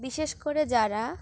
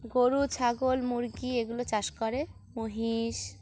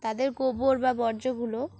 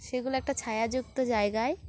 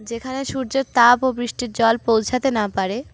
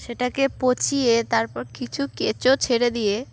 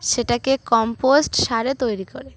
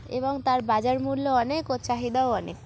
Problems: constant background noise, background conversations at intervals